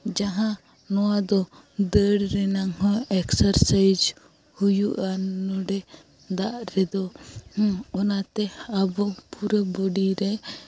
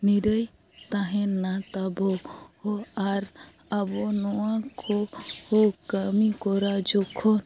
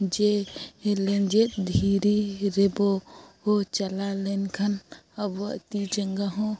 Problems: none marked